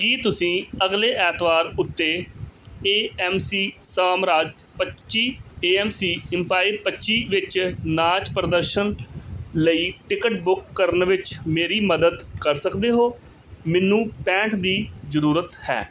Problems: none marked